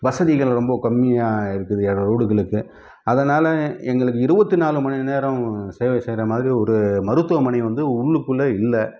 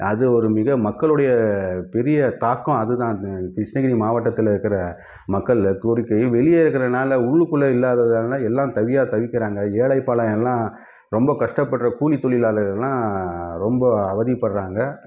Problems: none marked